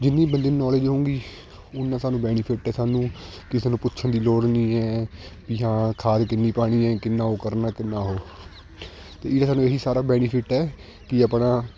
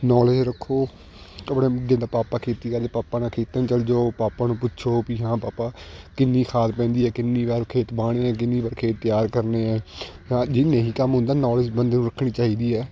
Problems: constant background noise, continuous background conversations